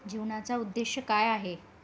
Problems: background sounds at intervals